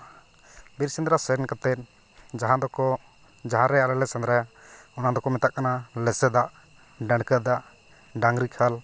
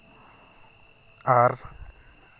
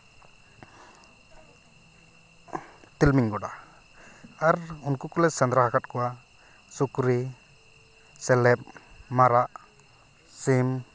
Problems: constant background noise